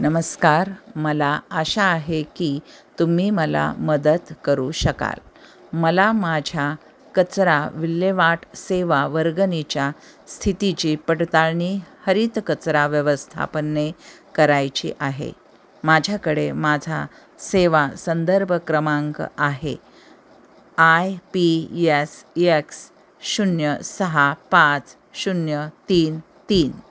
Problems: constant background noise